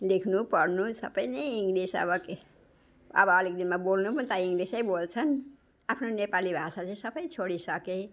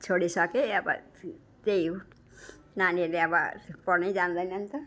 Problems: background sounds at intervals